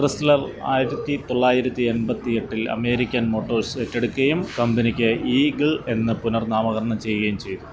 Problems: none marked